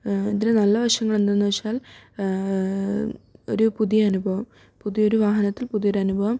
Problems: none marked